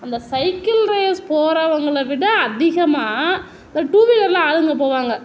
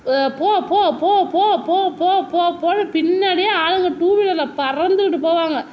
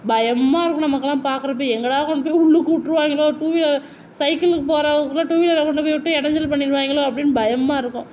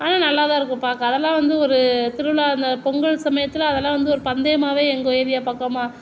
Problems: none marked